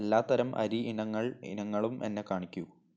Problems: low volume